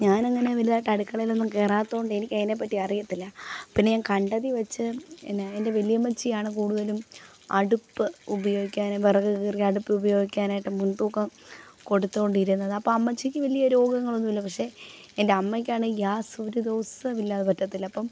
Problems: constant background noise, low volume